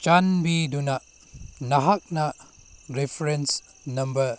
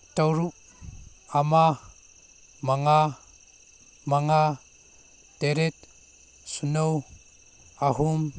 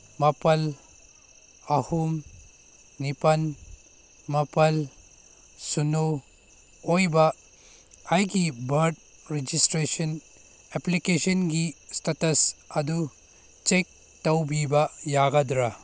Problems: background sounds at intervals